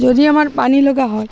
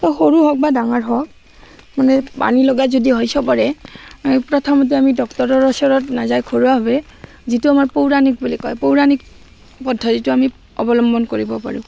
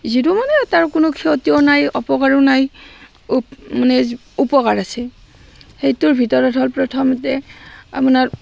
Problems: constant background noise